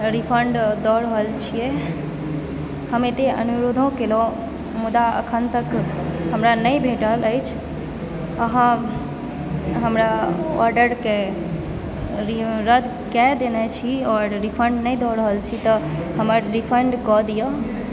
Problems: constant background noise, background conversations at intervals